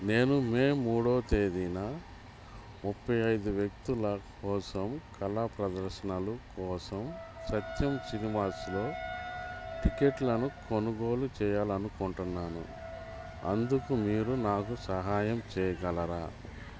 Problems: constant background noise